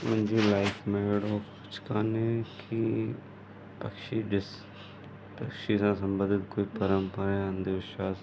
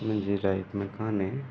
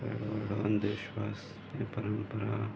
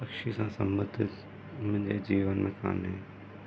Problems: constant background noise